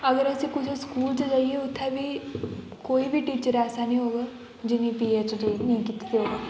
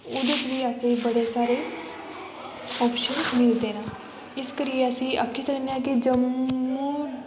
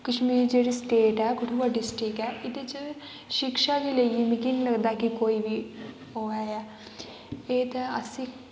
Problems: constant background noise, echo